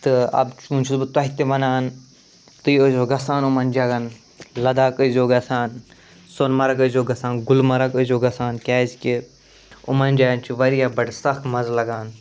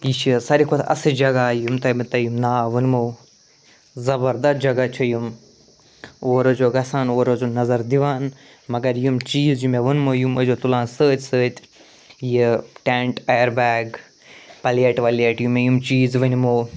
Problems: none marked